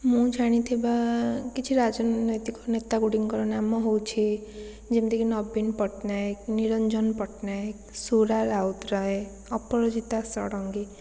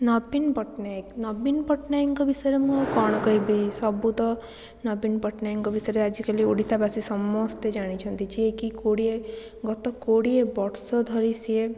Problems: constant background noise